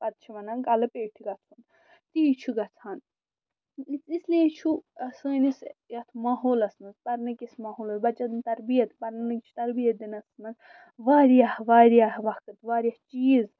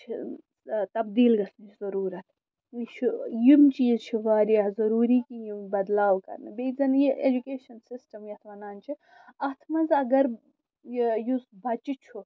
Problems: none marked